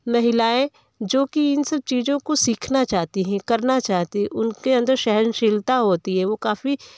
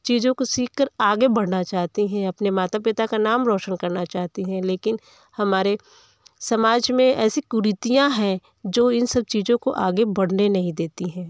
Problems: background sounds at intervals, background conversations at intervals